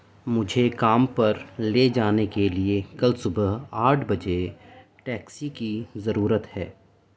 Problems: constant background noise